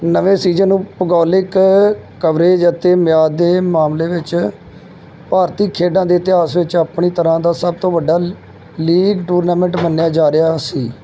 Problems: background sounds at intervals